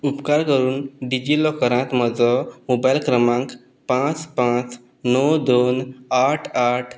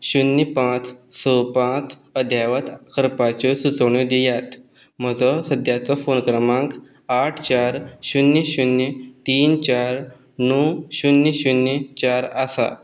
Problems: background sounds at intervals